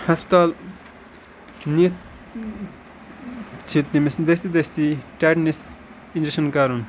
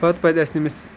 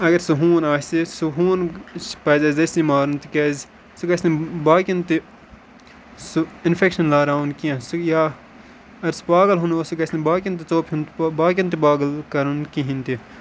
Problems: constant background noise